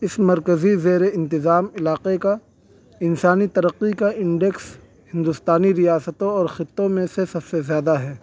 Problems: none marked